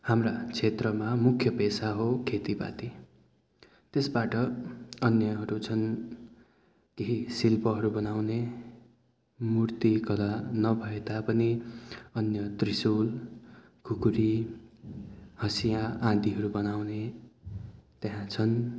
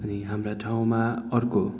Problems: background sounds at intervals